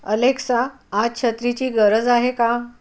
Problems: none marked